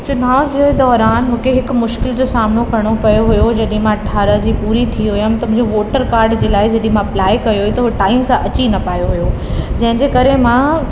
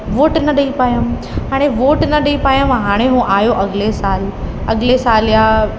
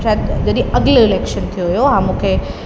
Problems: constant background noise, echo